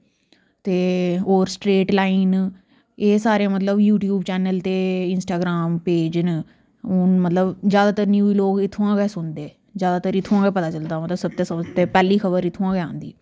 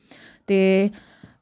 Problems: none marked